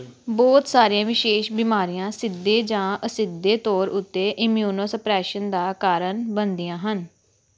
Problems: background sounds at intervals